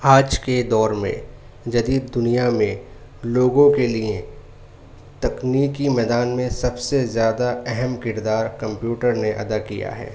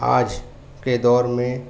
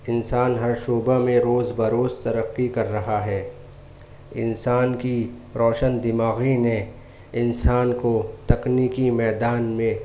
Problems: none marked